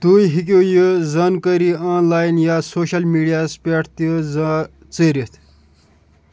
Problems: constant background noise